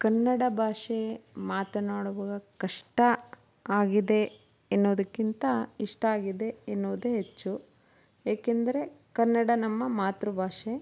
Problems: background sounds at intervals